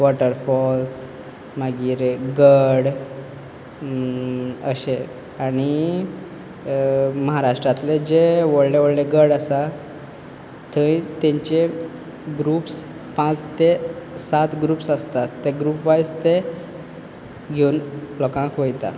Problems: background sounds at intervals